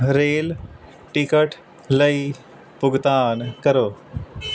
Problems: constant background noise